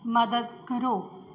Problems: background sounds at intervals